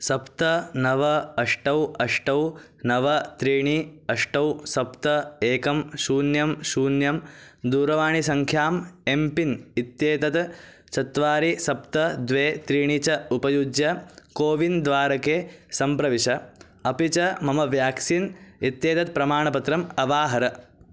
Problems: none marked